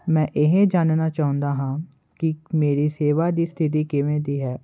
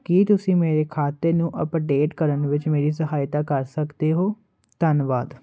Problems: constant background noise